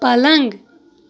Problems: none marked